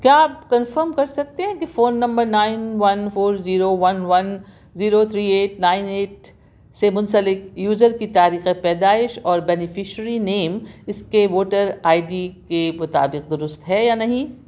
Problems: background sounds at intervals